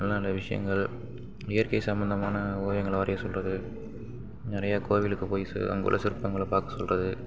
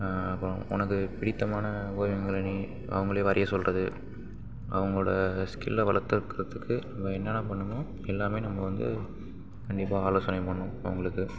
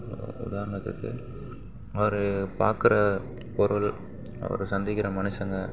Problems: background sounds at intervals